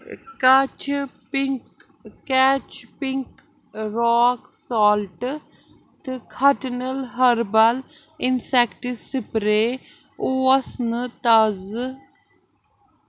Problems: constant background noise